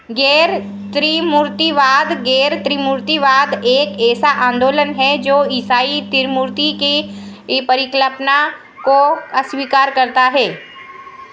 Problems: none marked